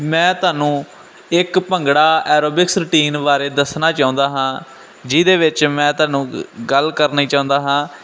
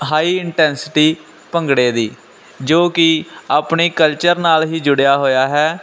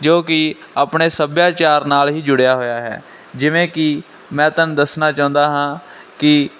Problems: none marked